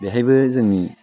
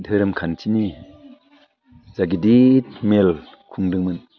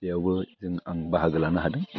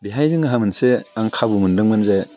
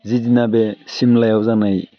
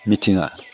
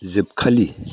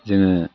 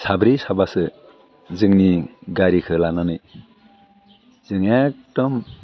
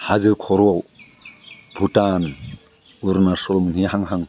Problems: none marked